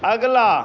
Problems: none marked